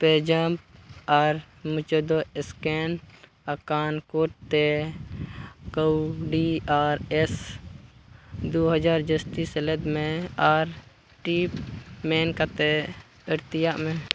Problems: background sounds at intervals